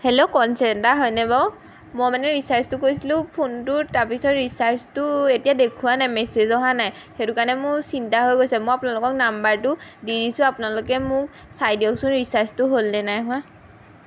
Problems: none marked